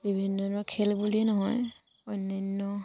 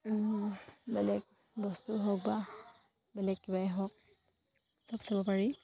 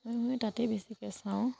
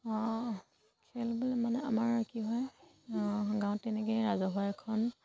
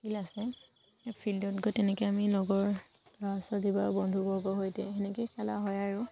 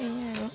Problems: none marked